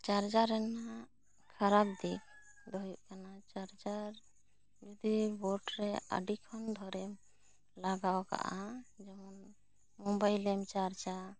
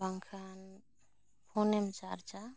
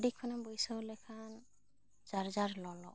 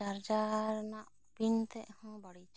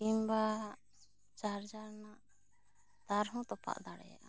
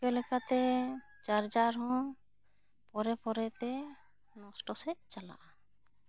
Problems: none marked